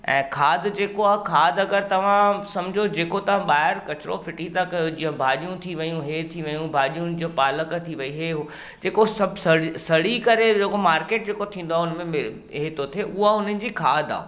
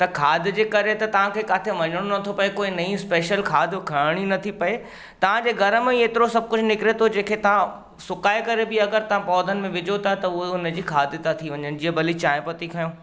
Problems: background sounds at intervals